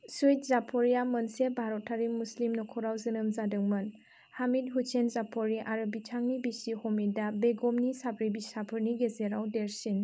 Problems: none marked